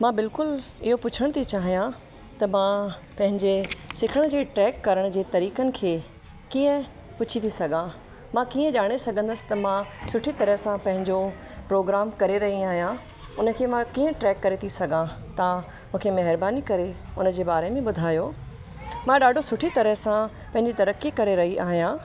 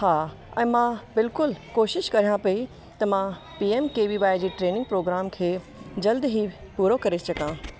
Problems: constant background noise, echo